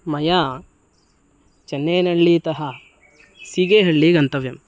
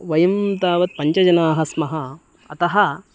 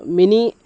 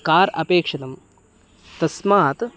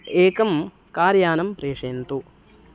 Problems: none marked